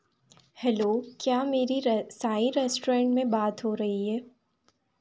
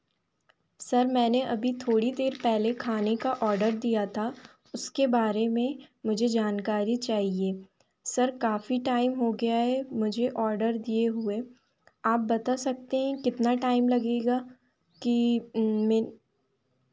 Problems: background conversations at intervals